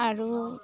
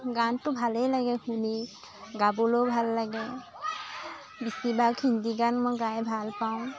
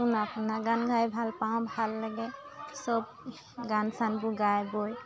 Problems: constant background noise, continuous background conversations